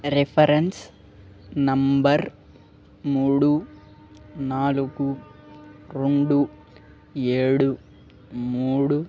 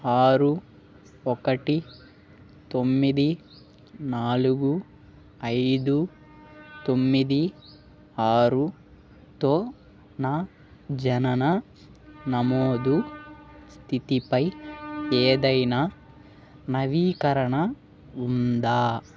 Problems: background sounds at intervals